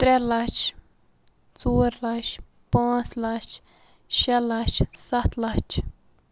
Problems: constant background noise